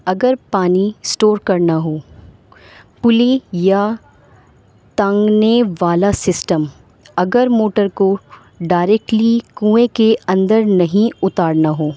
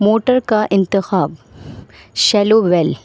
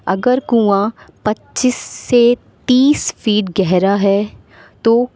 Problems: constant background noise